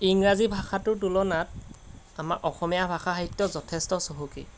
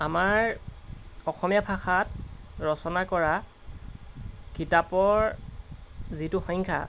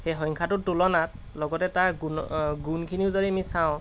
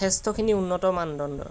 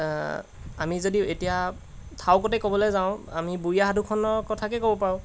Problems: background sounds at intervals